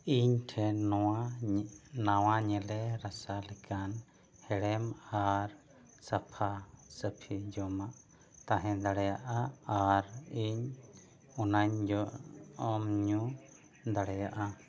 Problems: none marked